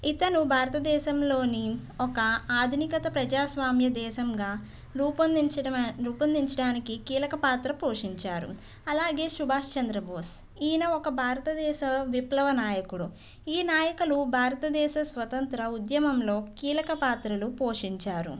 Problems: none marked